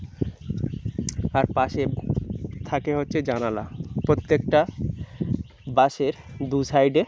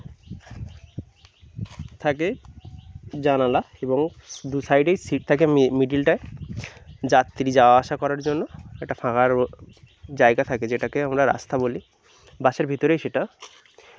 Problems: none marked